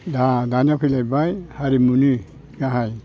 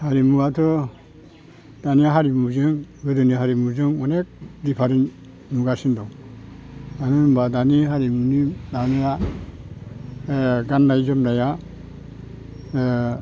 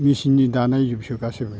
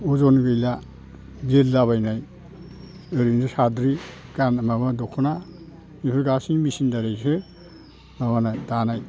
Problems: constant background noise